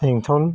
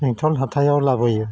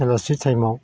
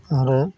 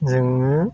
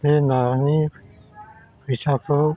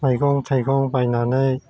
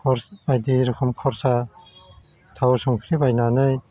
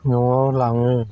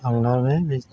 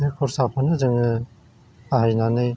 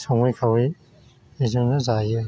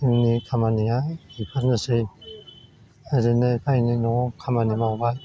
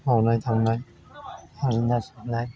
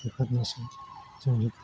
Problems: constant background noise